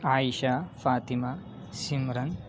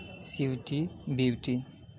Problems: constant background noise, background conversations at intervals